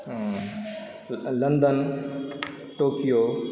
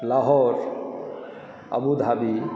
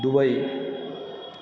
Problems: background sounds at intervals